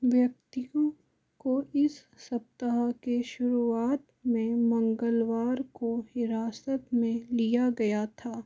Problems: none marked